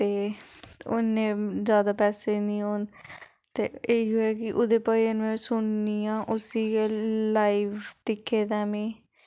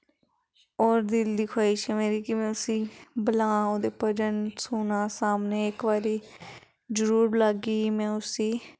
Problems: background conversations at intervals